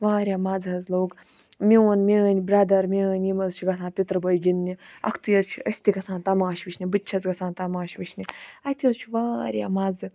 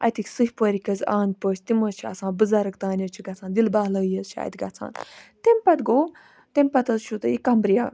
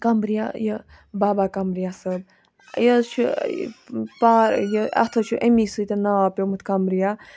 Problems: none marked